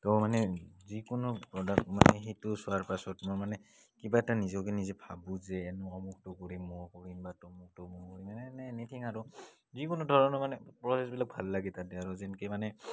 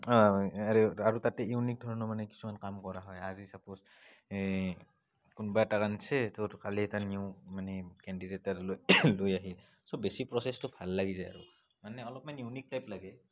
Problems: background sounds at intervals